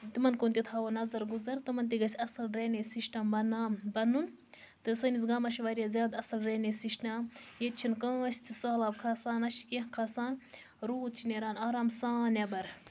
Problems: constant background noise